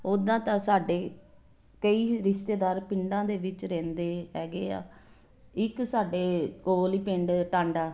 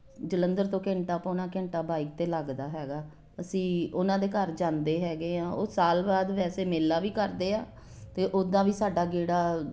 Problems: none marked